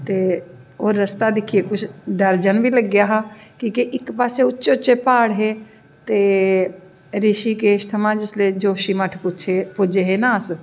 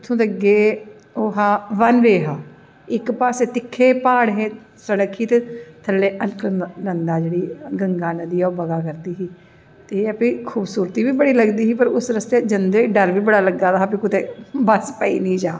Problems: echo